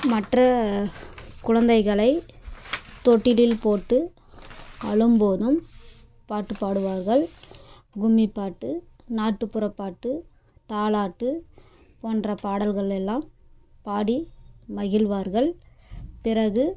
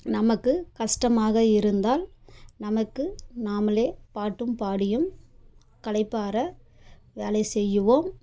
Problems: background sounds at intervals